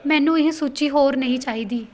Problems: background sounds at intervals